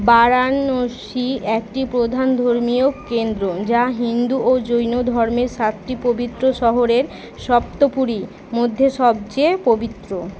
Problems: constant background noise, continuous background conversations